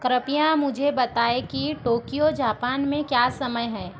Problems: background sounds at intervals